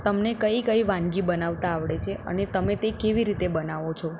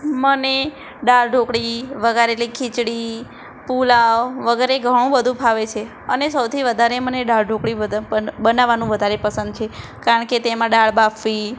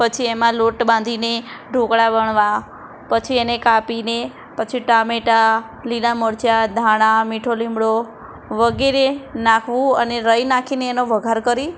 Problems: none marked